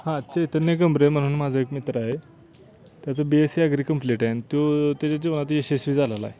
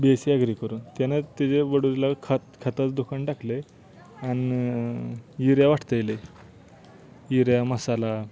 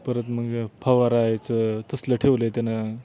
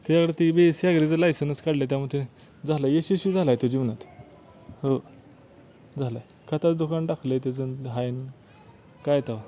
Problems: background sounds at intervals